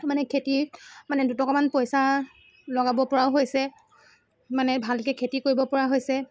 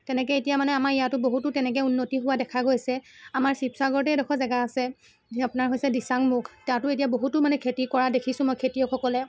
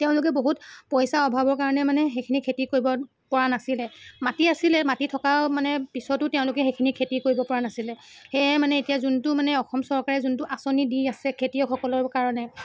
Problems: constant background noise, background conversations at intervals